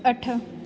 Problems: constant background noise, echo